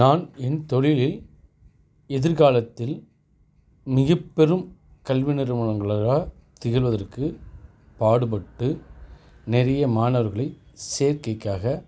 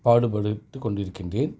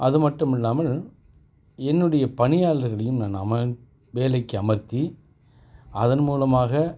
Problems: none marked